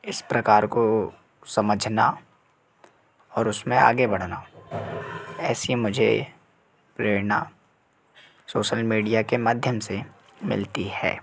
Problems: constant background noise, background conversations at intervals